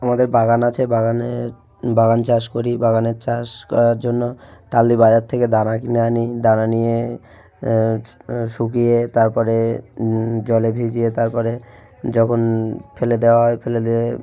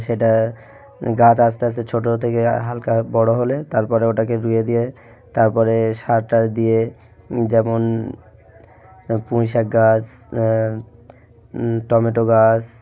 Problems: background sounds at intervals